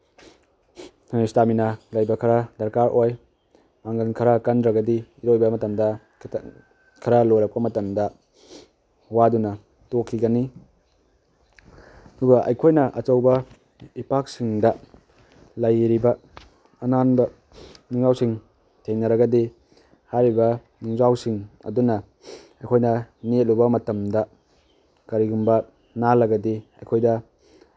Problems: background sounds at intervals